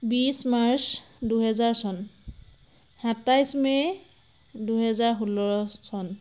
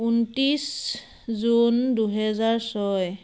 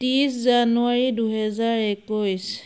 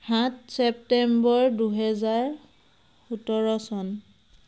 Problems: constant background noise